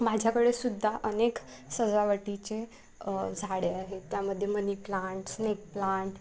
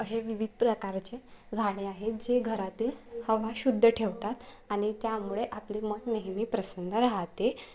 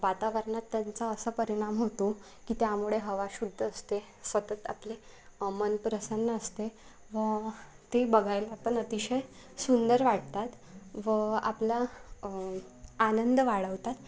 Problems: none marked